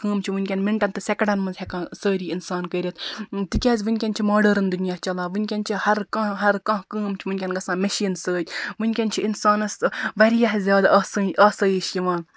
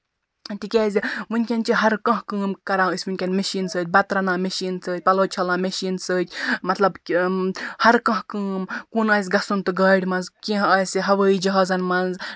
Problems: background sounds at intervals